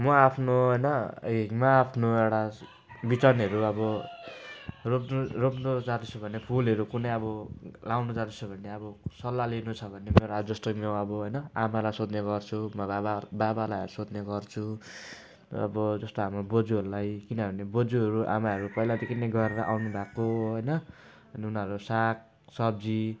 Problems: none marked